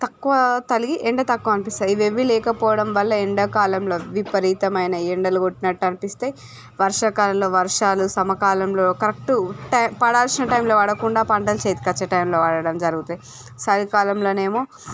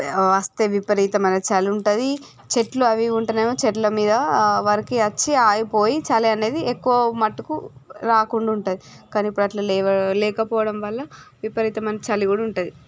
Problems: background sounds at intervals